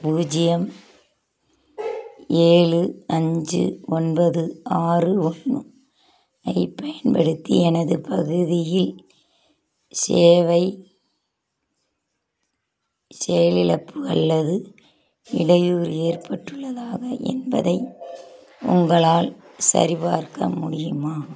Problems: constant background noise